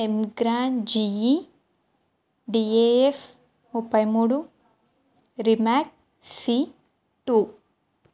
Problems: constant background noise